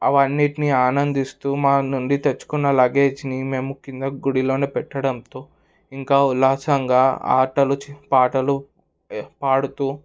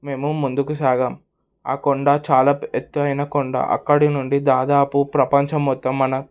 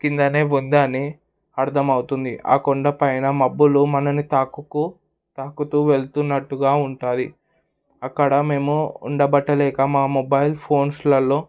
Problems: none marked